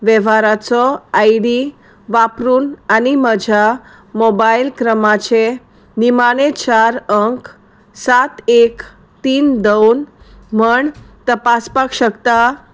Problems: none marked